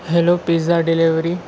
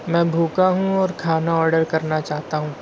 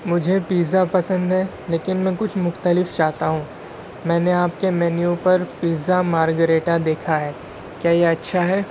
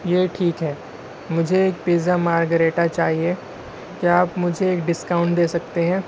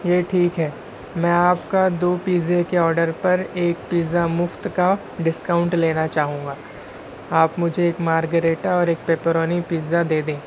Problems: constant background noise